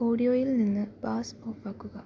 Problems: low volume